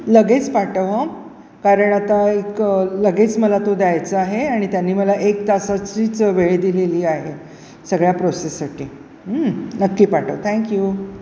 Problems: none marked